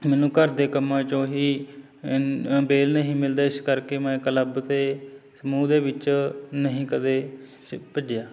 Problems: constant background noise, background conversations at intervals